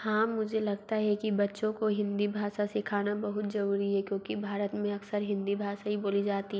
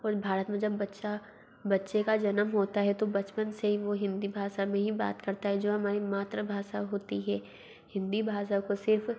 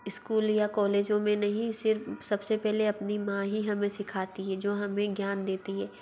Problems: background sounds at intervals, low volume